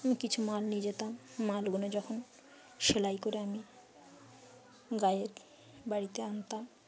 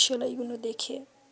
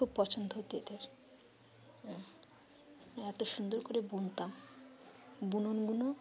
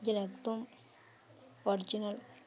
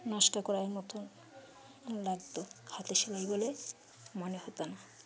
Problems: background sounds at intervals, background conversations at intervals